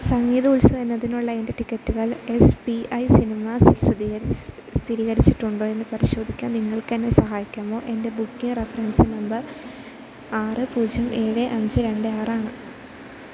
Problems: constant background noise